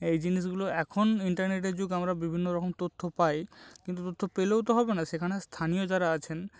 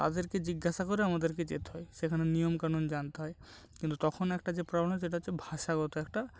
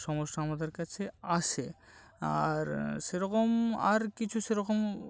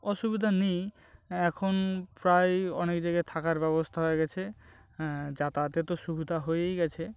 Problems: none marked